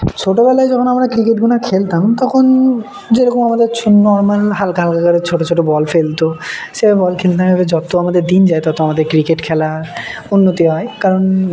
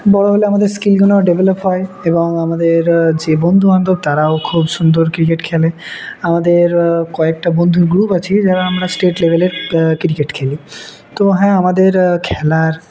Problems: none marked